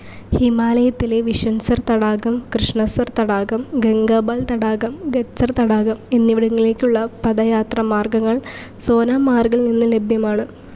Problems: constant background noise